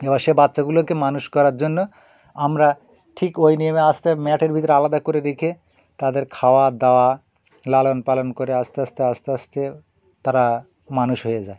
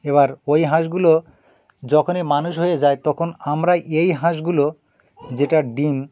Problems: background sounds at intervals, background conversations at intervals